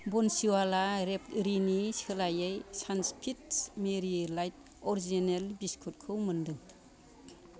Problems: background sounds at intervals